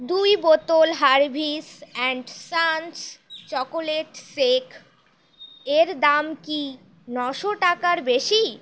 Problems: constant background noise